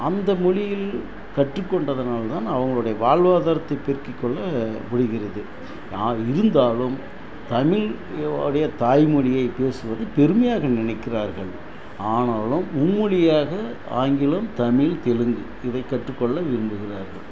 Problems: constant background noise